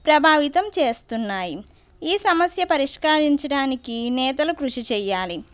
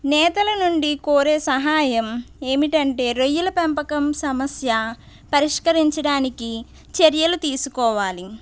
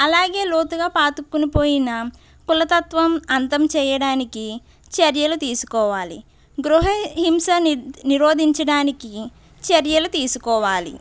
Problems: background sounds at intervals